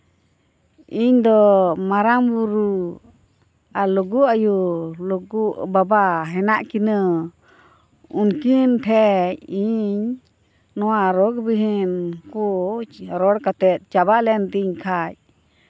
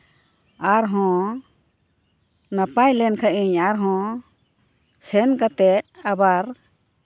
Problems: none marked